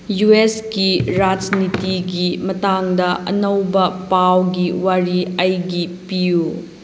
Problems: constant background noise